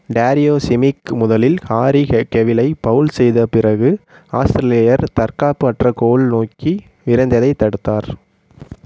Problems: none marked